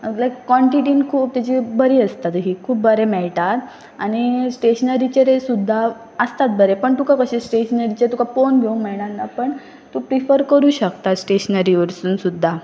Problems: constant background noise